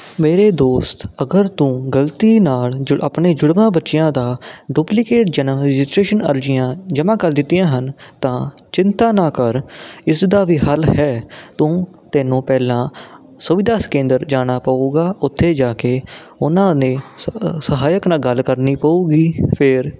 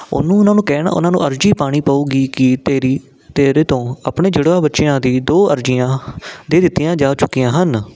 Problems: constant background noise